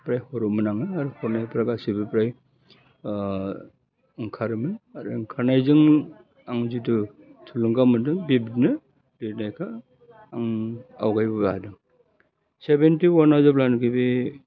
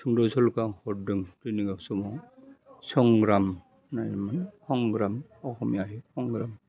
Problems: constant background noise